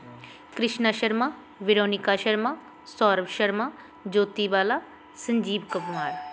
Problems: background sounds at intervals